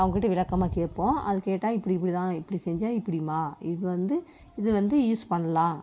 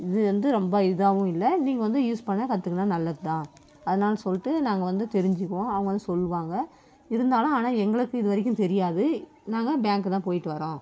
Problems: none marked